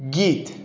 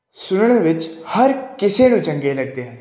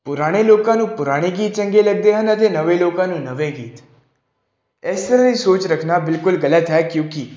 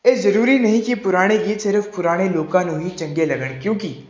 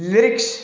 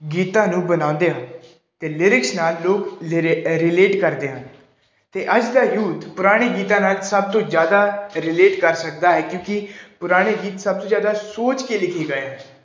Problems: background sounds at intervals